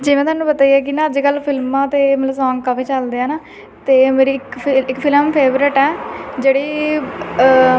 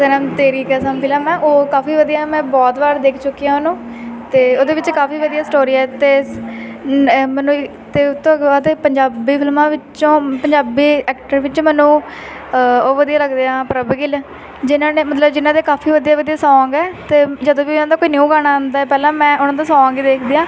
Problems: constant background noise